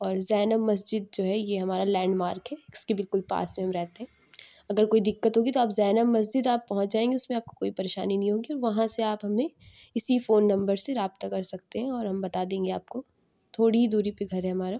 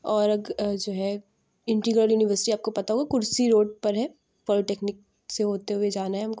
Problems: none marked